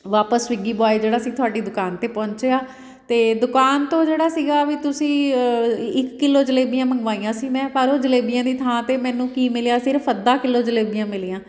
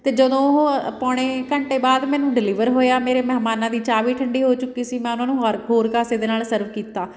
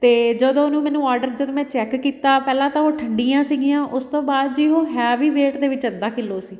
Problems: background sounds at intervals